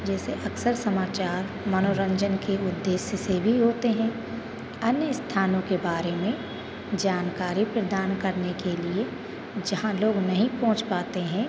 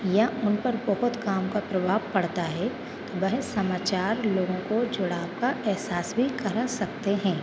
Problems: constant background noise, background conversations at intervals